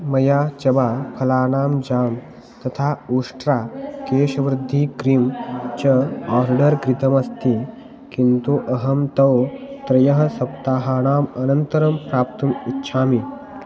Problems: constant background noise